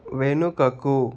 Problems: constant background noise